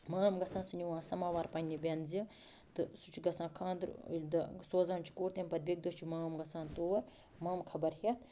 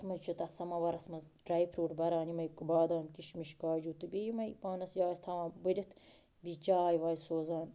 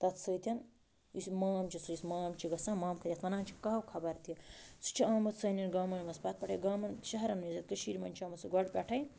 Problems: constant background noise